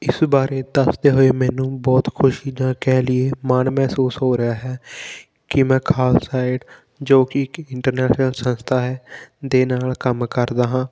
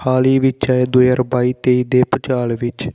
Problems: background sounds at intervals